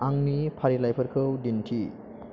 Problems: constant background noise